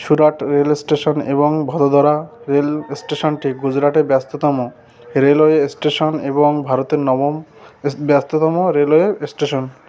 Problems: none marked